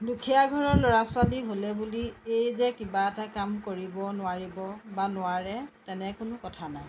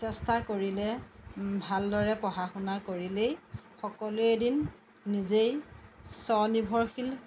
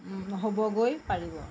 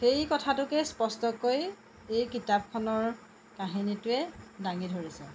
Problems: constant background noise